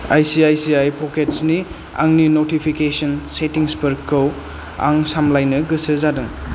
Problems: none marked